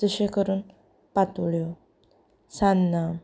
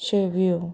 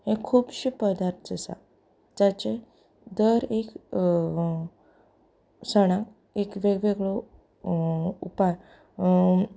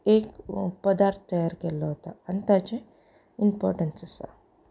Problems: none marked